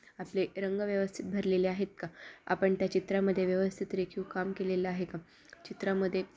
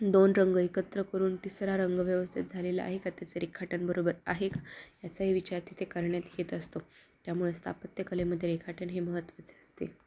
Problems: background sounds at intervals